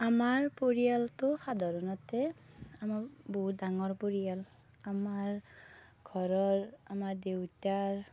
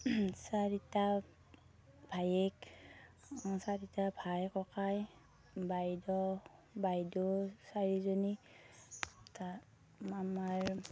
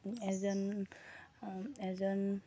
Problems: low volume